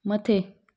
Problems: none marked